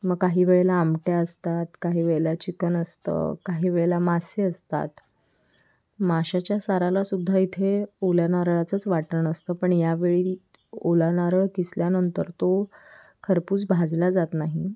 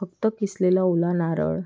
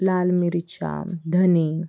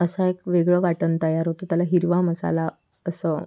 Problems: none marked